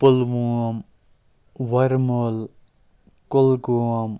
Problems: background sounds at intervals